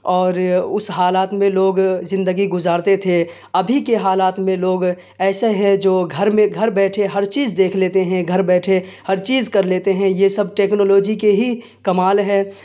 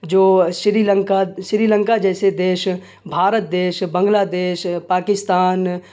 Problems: none marked